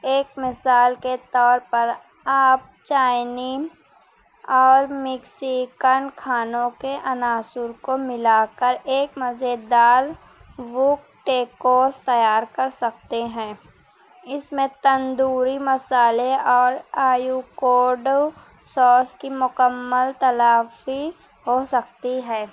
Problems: none marked